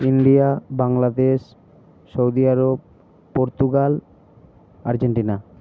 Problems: none marked